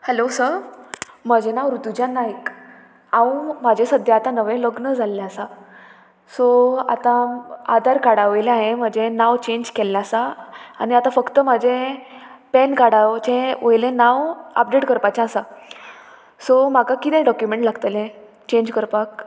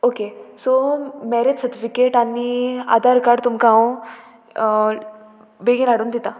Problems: constant background noise, background conversations at intervals